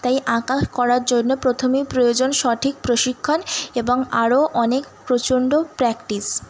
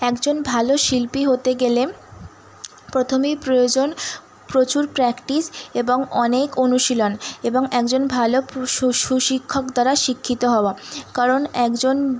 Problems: constant background noise